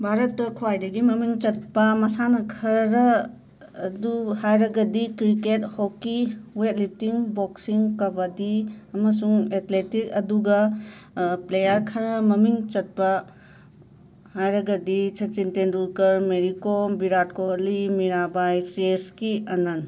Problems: background sounds at intervals